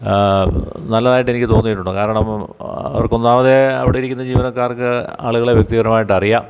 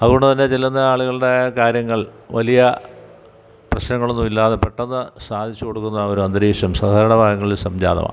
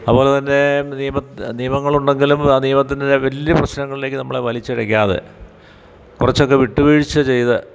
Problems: background sounds at intervals